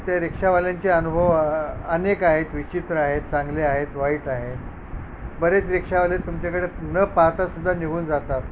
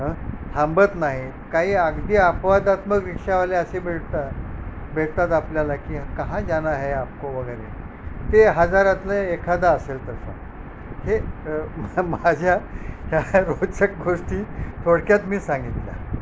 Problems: background sounds at intervals